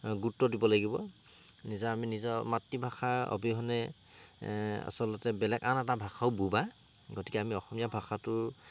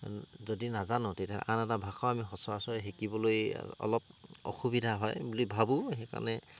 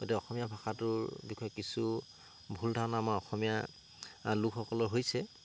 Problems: constant background noise